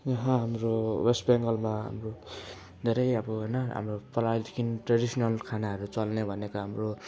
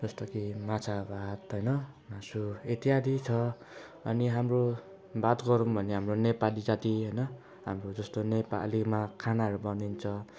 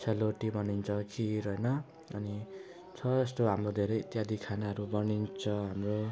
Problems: none marked